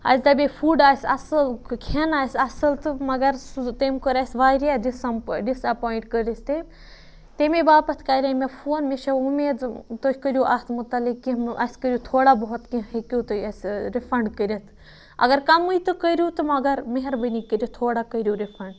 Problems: none marked